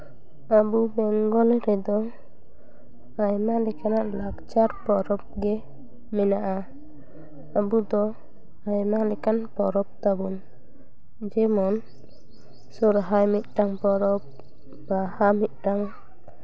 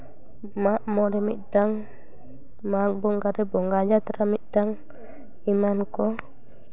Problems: background conversations at intervals